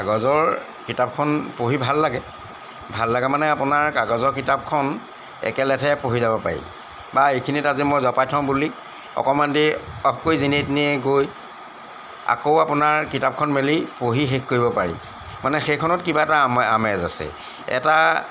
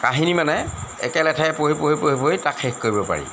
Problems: background sounds at intervals